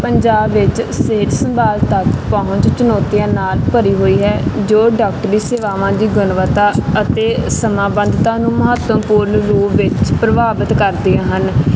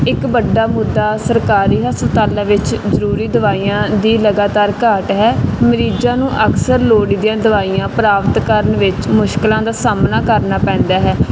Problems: constant background noise